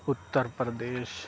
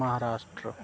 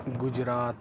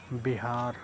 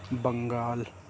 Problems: constant background noise